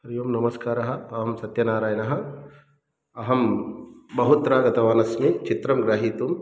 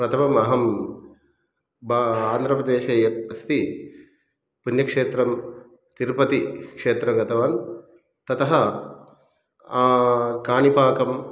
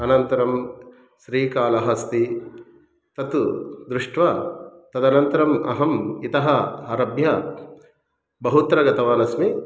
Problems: background sounds at intervals